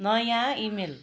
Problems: background sounds at intervals